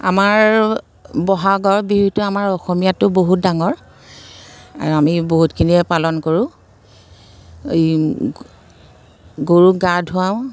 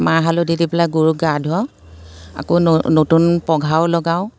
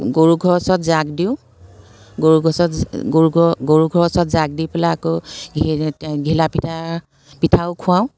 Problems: constant background noise